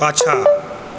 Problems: background sounds at intervals